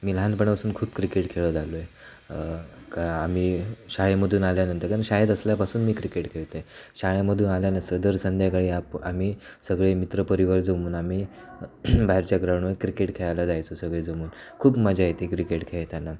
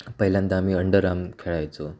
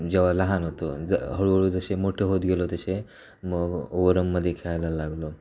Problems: none marked